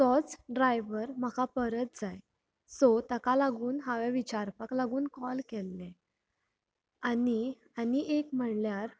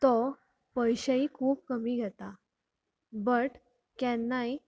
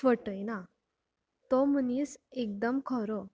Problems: none marked